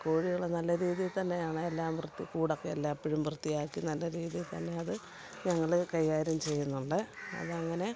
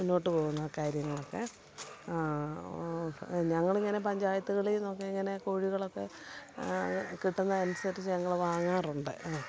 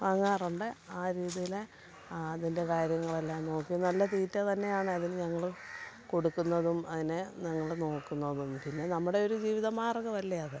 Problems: constant background noise, low volume